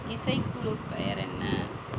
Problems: constant background noise